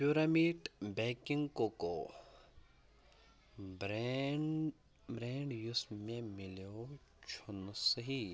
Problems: constant background noise, low volume